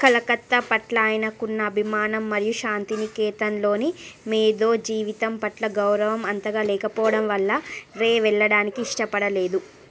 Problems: constant background noise